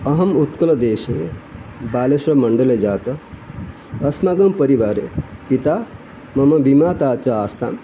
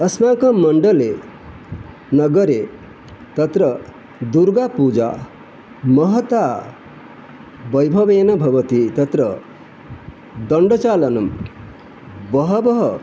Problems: constant background noise